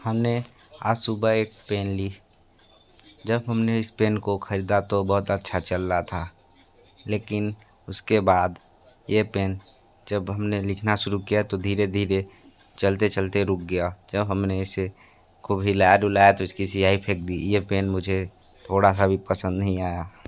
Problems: none marked